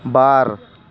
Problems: constant background noise